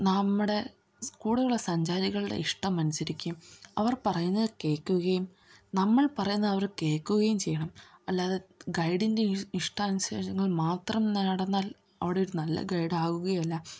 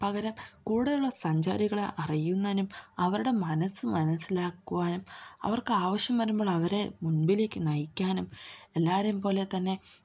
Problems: low volume